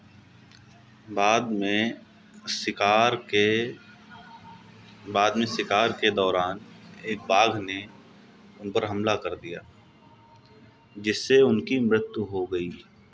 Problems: none marked